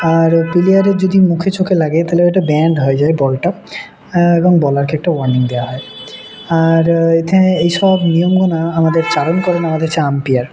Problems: none marked